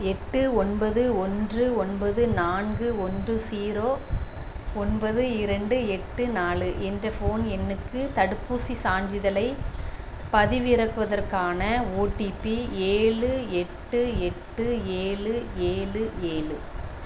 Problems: constant background noise